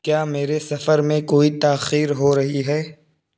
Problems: constant background noise